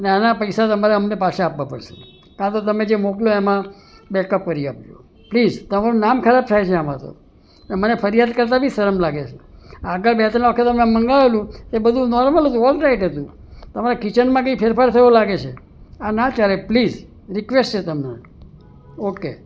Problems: none marked